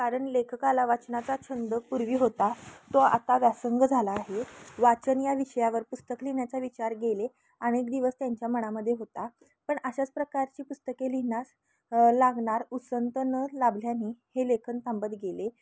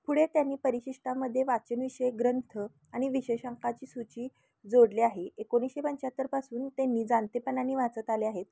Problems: constant background noise